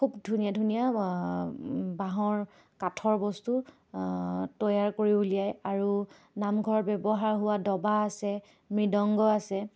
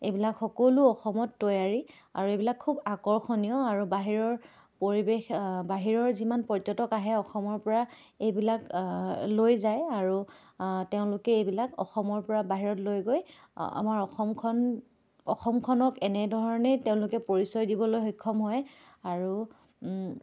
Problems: none marked